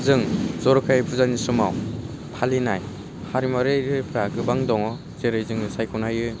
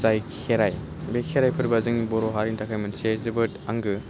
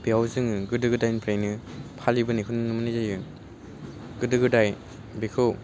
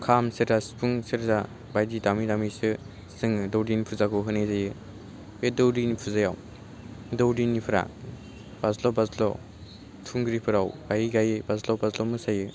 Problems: low volume